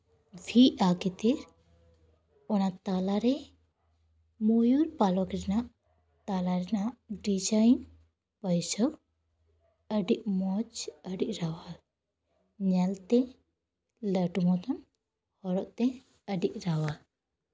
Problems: none marked